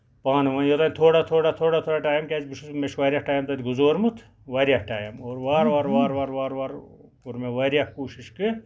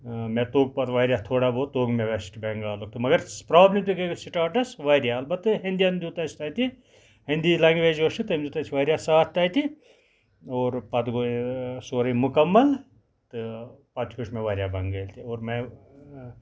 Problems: none marked